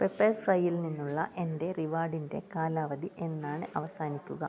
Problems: none marked